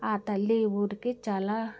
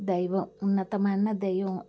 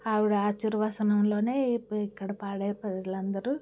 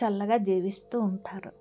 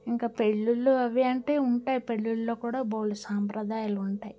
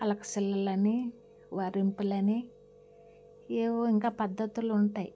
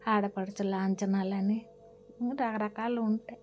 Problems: background sounds at intervals